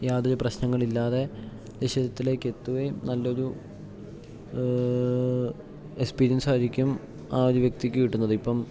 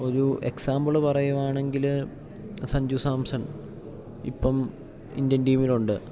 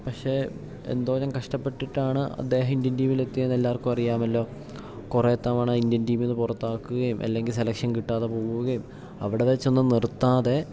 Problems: none marked